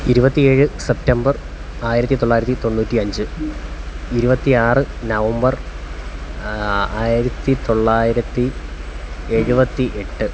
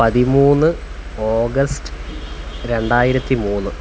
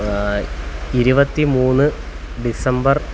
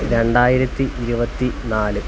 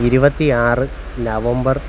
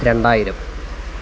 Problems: none marked